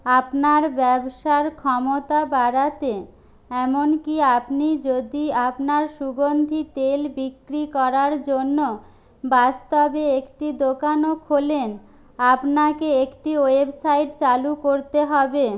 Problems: none marked